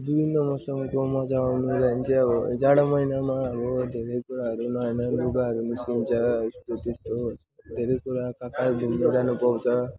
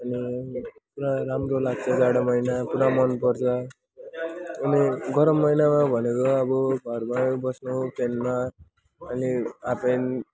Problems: constant background noise, background conversations at intervals